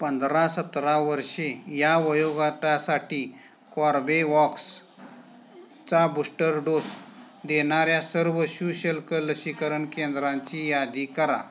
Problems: none marked